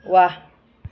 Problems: background sounds at intervals